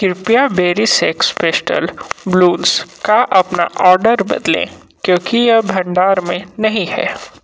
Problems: constant background noise